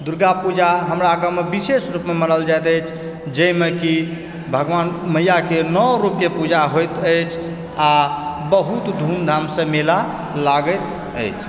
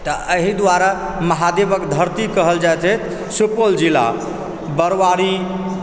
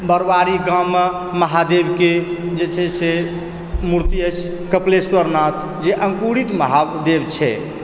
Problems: background sounds at intervals, background conversations at intervals